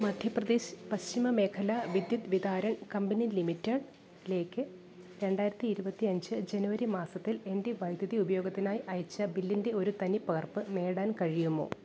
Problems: background sounds at intervals